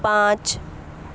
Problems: constant background noise